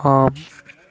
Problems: constant background noise